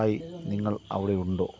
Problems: constant background noise, low volume